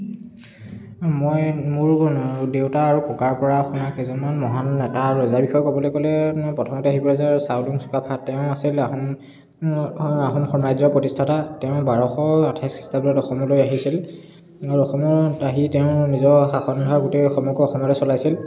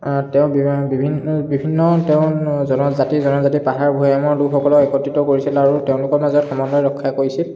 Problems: background conversations at intervals